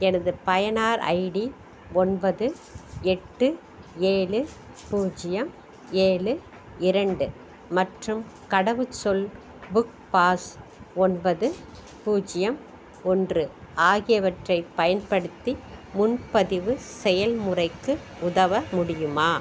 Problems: constant background noise